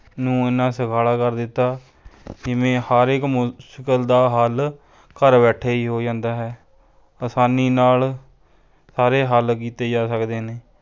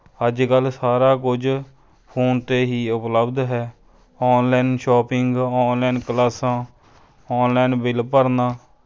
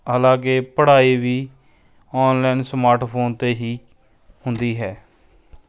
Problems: continuous background conversations